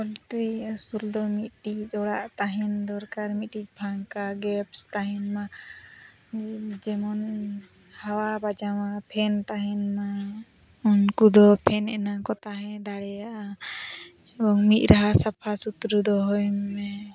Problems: constant background noise